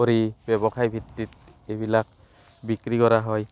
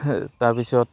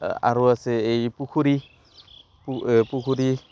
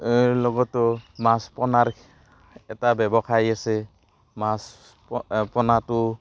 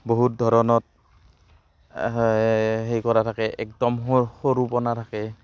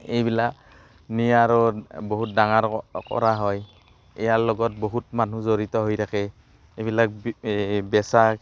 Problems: constant background noise